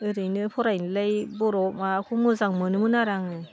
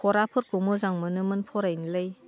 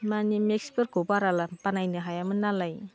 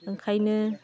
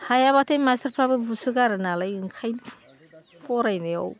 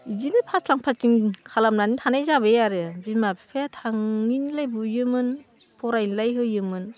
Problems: constant background noise